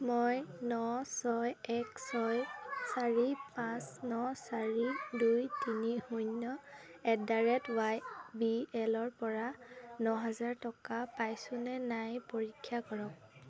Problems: none marked